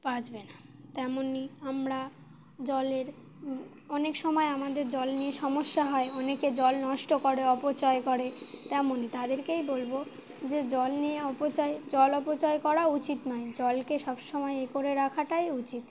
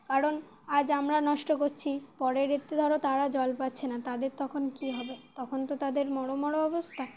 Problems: constant background noise